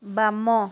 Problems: none marked